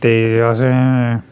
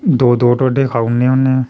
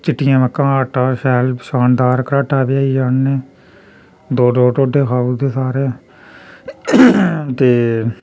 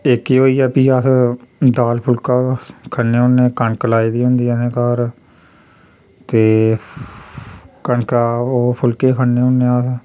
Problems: background sounds at intervals